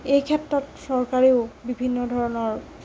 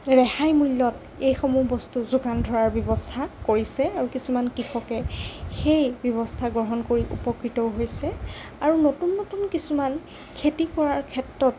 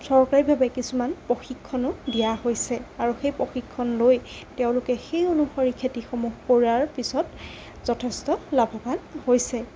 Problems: none marked